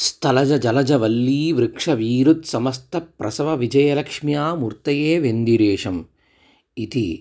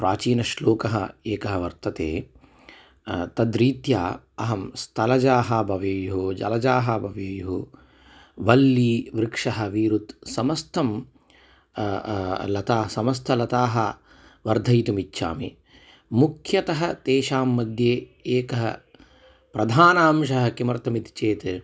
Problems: none marked